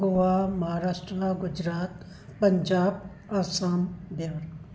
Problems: none marked